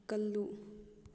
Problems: low volume